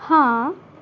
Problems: none marked